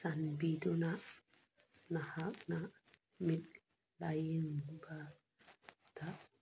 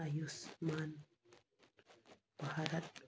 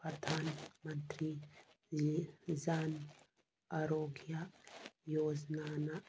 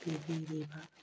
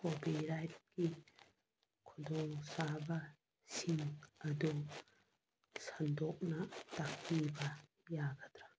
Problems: none marked